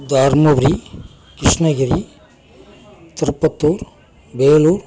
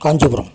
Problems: constant background noise